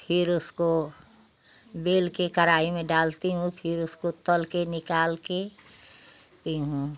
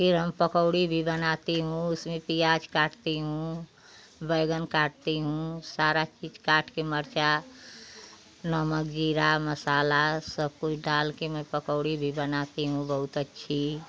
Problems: none marked